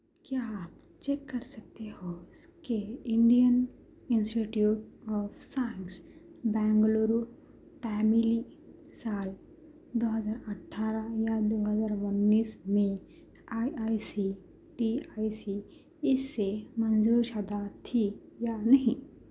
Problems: low volume